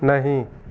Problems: constant background noise